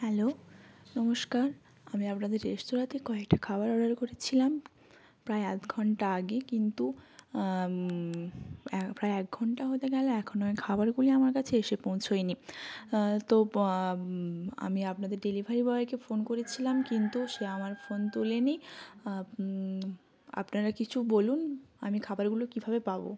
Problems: background sounds at intervals